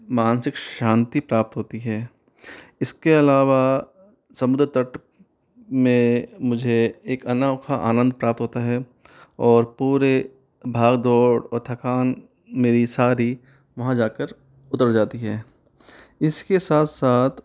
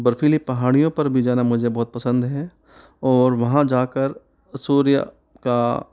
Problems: none marked